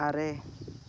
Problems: background sounds at intervals